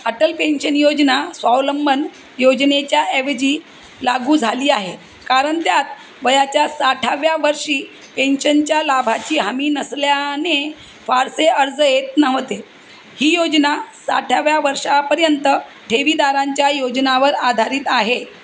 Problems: none marked